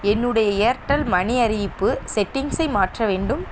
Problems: constant background noise